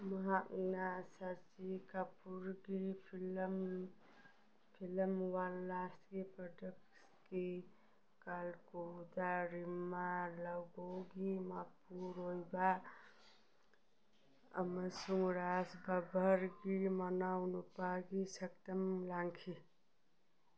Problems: background sounds at intervals